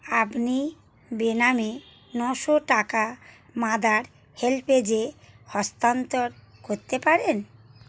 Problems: background sounds at intervals